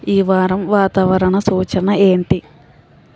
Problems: constant background noise